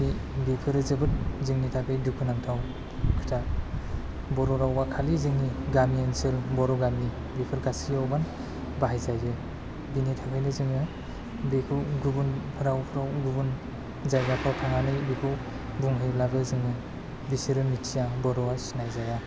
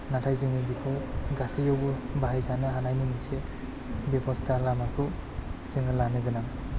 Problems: low volume